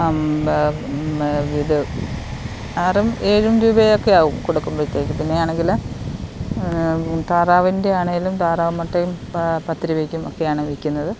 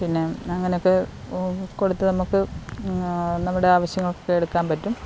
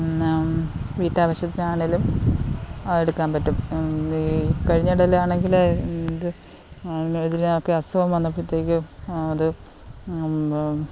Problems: none marked